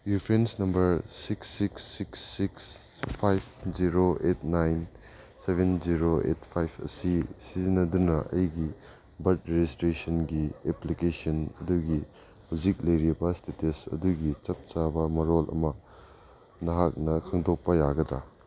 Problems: background sounds at intervals